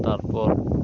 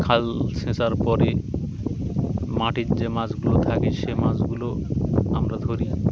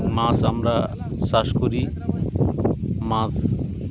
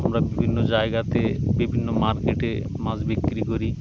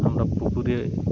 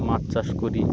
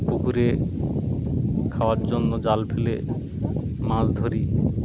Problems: constant background noise, background conversations at intervals